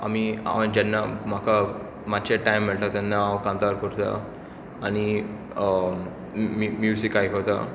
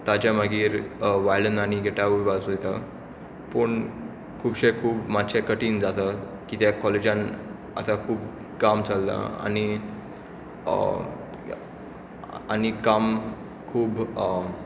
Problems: constant background noise